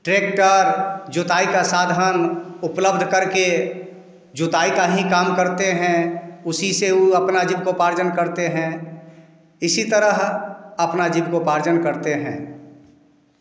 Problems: background sounds at intervals